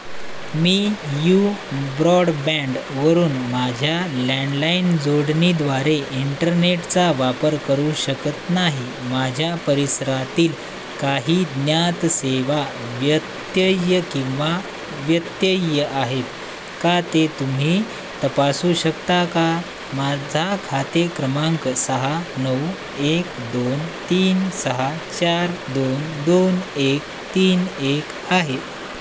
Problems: constant background noise